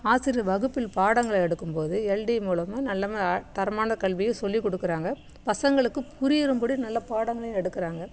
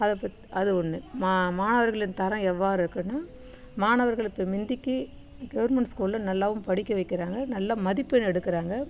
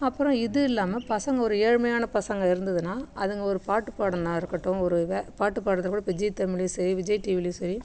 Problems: none marked